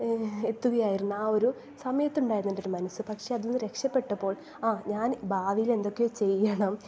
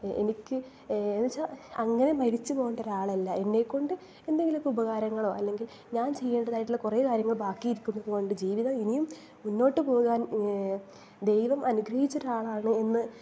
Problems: none marked